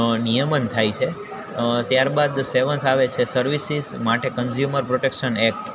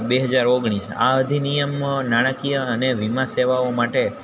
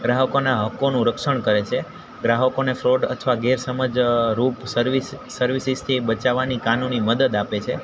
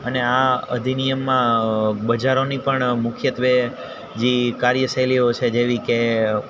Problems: constant background noise